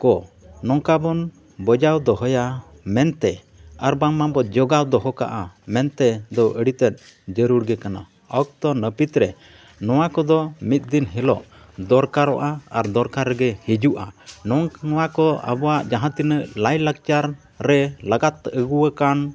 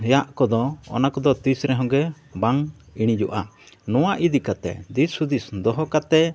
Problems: background sounds at intervals, background conversations at intervals